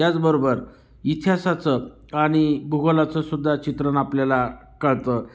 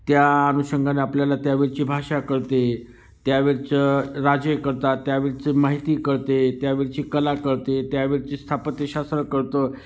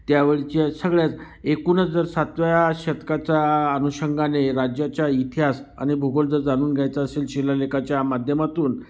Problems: constant background noise